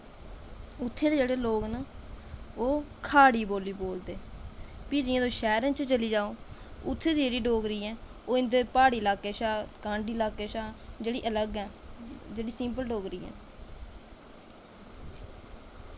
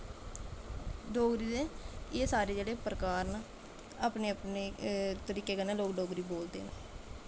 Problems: constant background noise